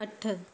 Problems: constant background noise